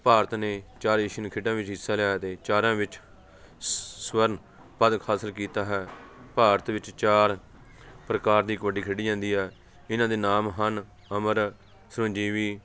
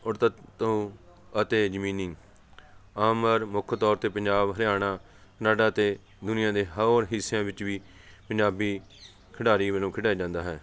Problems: none marked